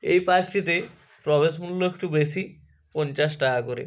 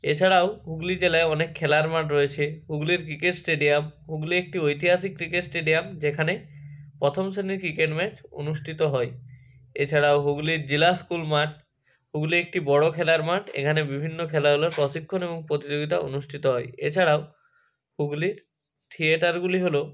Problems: constant background noise, background conversations at intervals